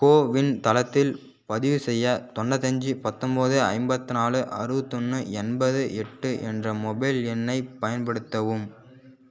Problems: background sounds at intervals